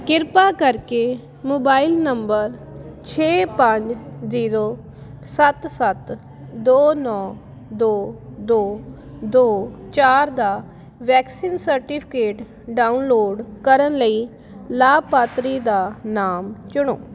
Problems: constant background noise